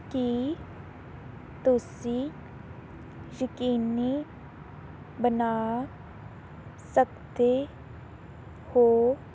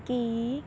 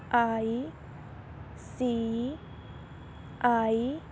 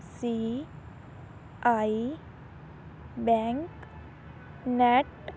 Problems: background sounds at intervals